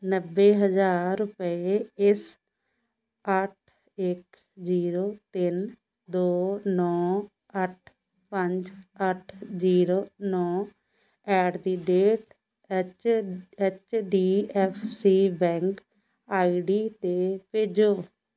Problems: background sounds at intervals